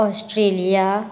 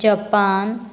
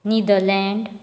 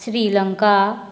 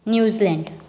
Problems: none marked